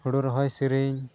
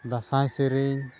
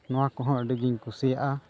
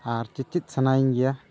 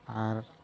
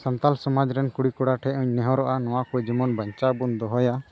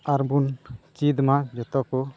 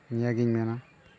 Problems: constant background noise